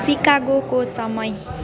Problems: constant background noise